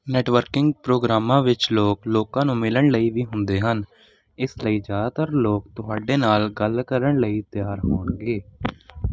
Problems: none marked